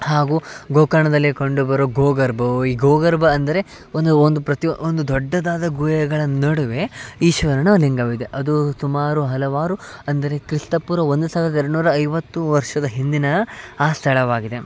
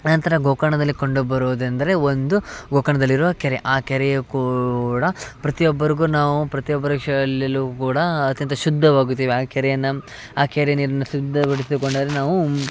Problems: background sounds at intervals